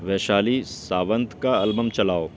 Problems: constant background noise, background conversations at intervals